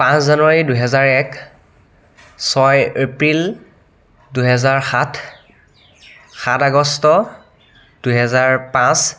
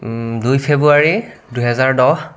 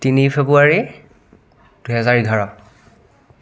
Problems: background conversations at intervals